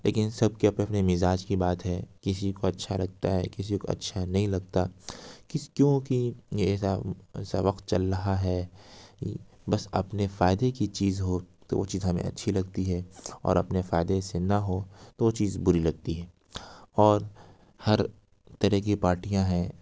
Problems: none marked